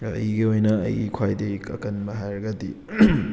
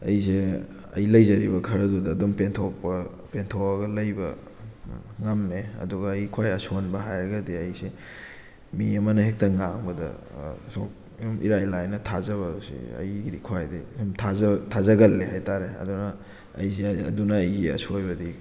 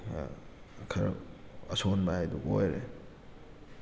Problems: background sounds at intervals